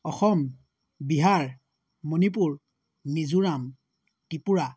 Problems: none marked